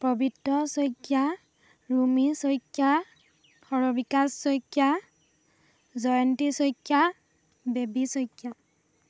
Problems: none marked